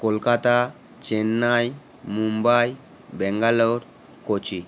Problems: constant background noise